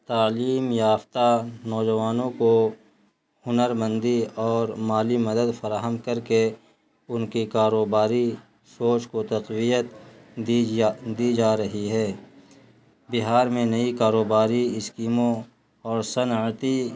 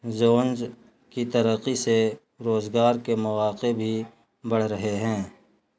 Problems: constant background noise